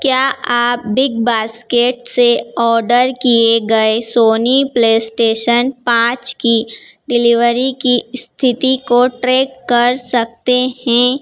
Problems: none marked